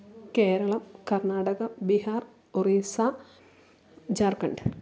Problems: none marked